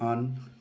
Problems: background sounds at intervals